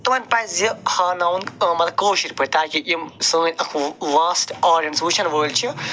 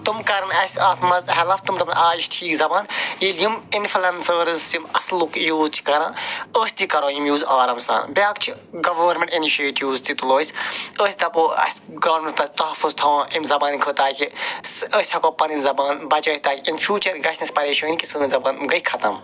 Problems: none marked